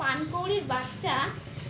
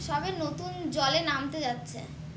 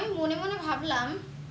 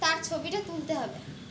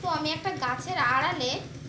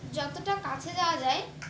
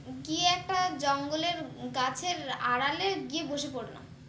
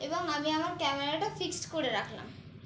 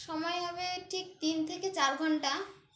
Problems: none marked